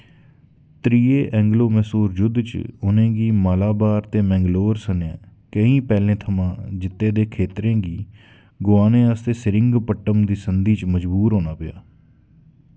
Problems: none marked